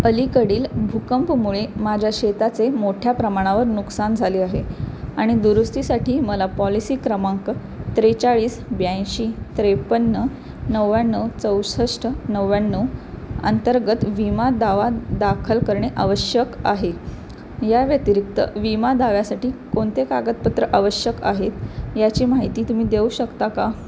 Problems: constant background noise